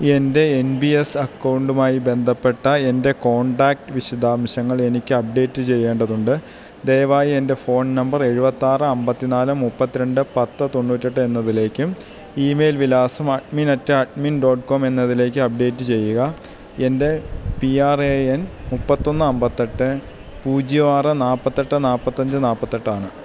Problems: none marked